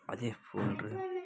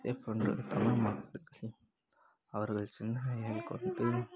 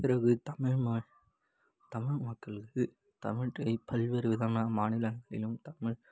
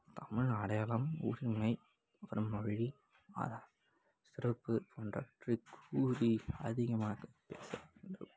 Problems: constant background noise